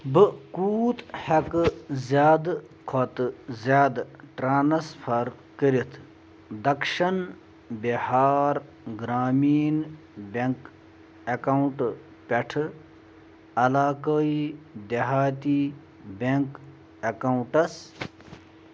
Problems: none marked